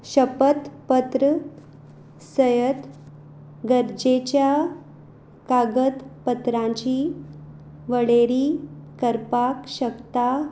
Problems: background sounds at intervals